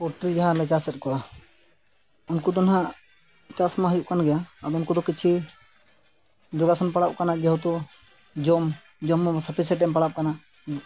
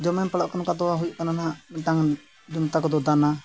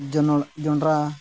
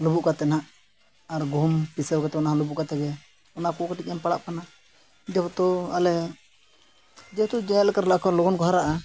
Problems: constant background noise